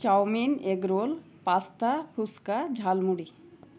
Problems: none marked